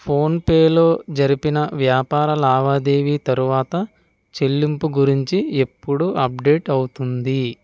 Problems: none marked